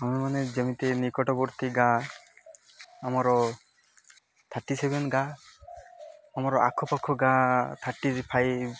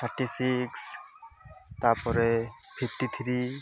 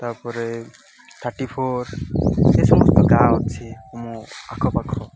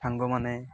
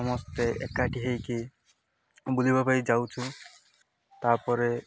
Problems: constant background noise